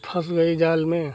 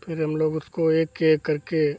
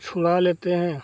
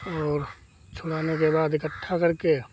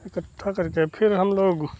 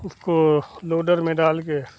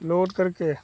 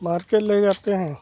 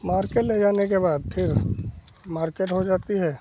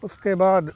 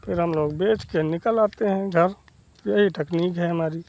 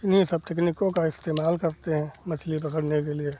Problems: constant background noise